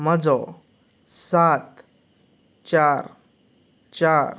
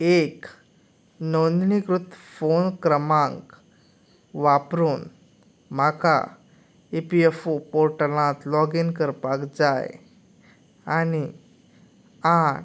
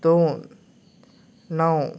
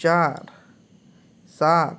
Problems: background conversations at intervals